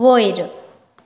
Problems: constant background noise